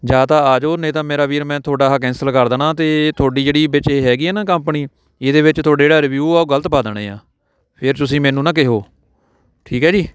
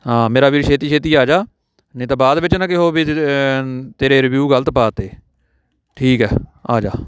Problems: background conversations at intervals